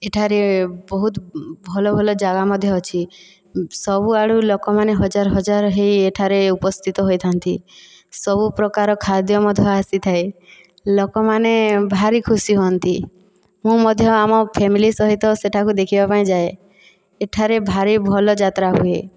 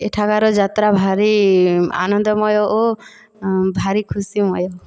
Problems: none marked